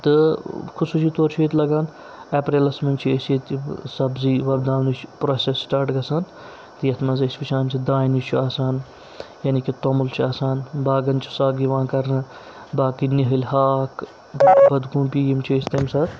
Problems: constant background noise